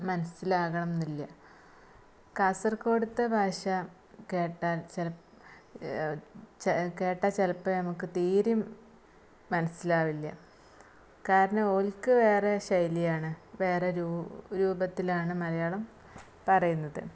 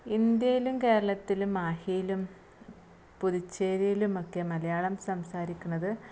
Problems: low volume